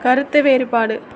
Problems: constant background noise